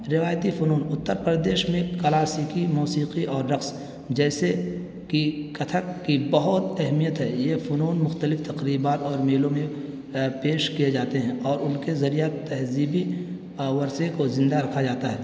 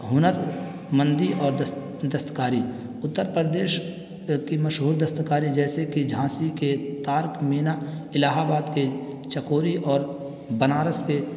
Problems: constant background noise